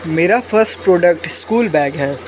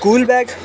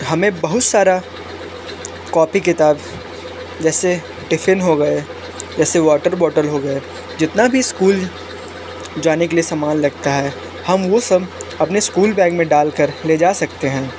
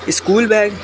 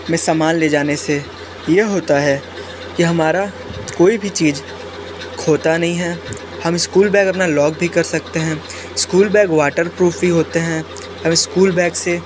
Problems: constant background noise